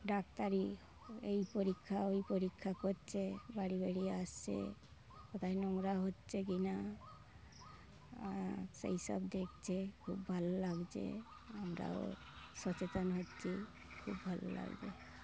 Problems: constant background noise